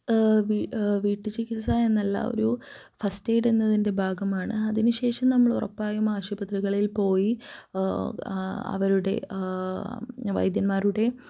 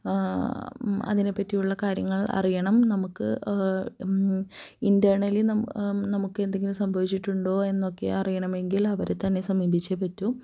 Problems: low volume